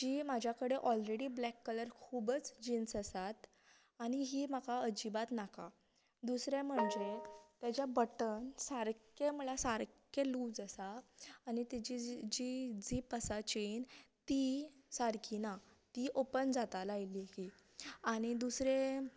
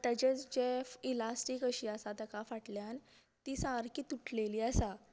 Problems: none marked